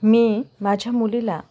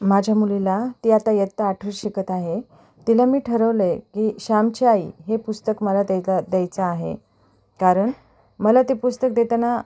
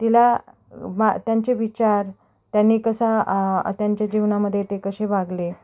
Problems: background sounds at intervals